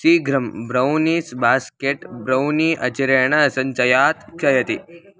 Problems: background conversations at intervals